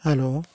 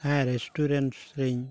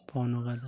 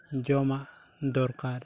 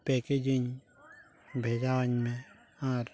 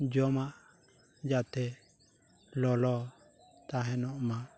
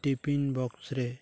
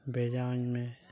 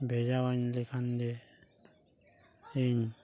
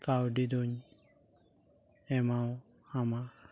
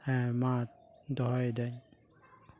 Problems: background sounds at intervals